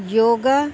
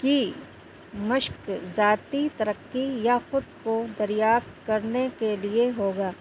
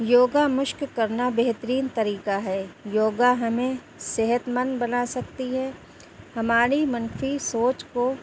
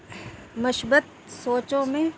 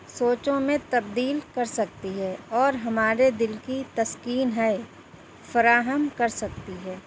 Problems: constant background noise